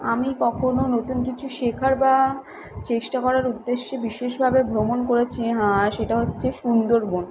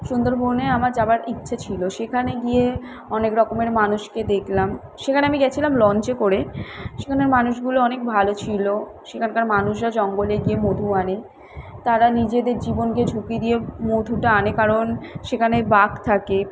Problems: none marked